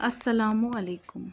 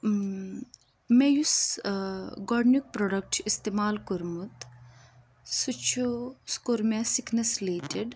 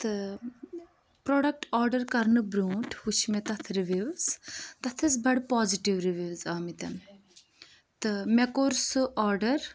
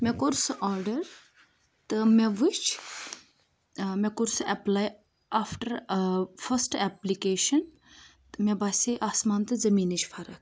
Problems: constant background noise